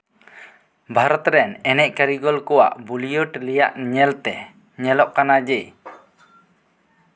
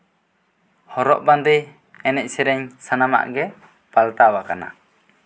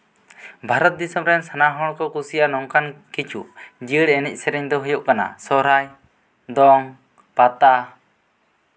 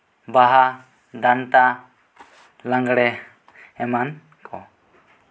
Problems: none marked